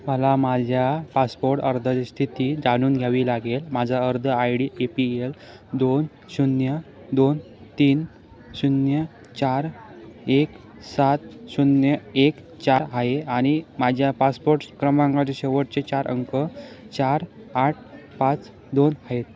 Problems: background conversations at intervals